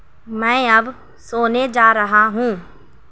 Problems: none marked